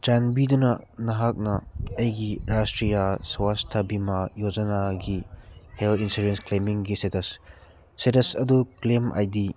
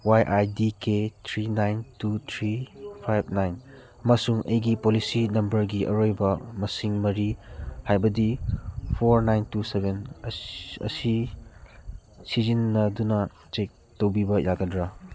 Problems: background sounds at intervals